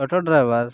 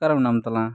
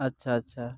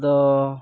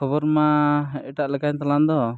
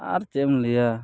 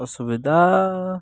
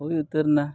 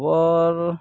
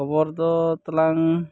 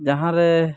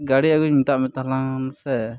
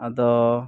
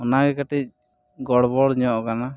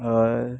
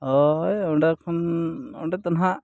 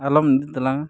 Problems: background sounds at intervals